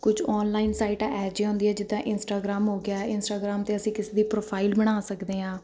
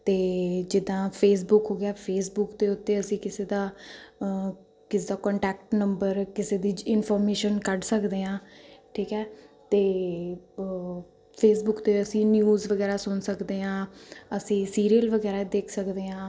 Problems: continuous background conversations